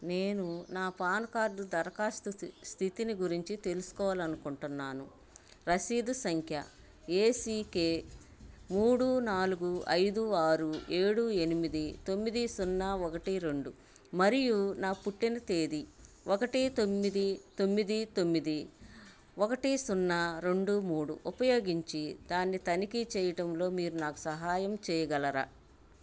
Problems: constant background noise